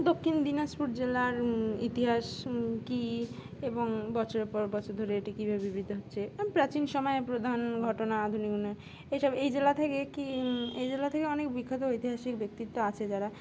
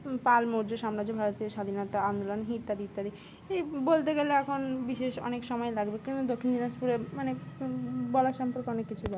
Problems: constant background noise